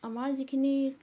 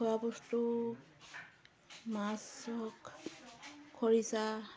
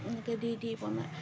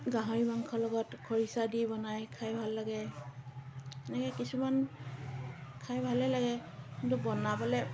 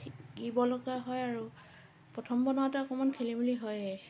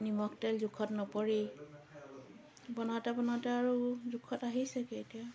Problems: constant background noise, continuous background conversations